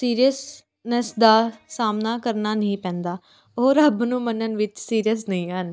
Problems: background sounds at intervals, continuous background conversations